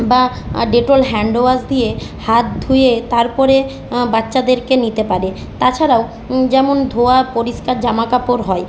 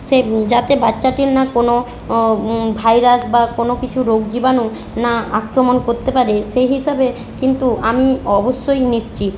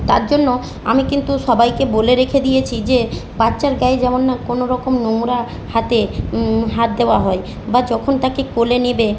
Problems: constant background noise